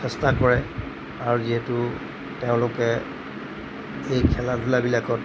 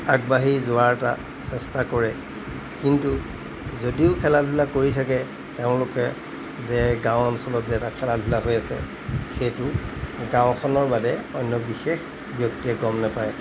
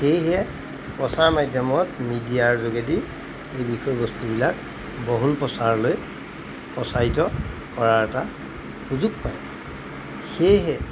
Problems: constant background noise